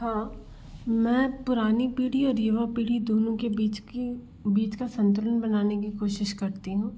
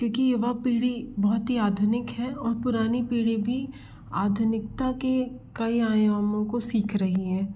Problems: none marked